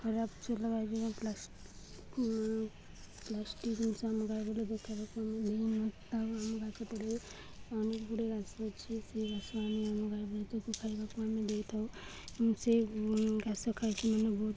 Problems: none marked